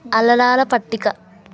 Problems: constant background noise